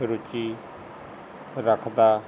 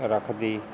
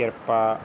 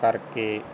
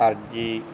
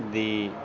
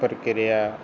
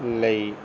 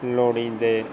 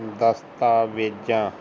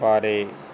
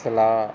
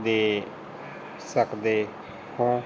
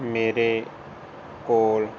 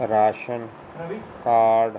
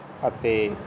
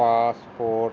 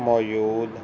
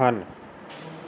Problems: constant background noise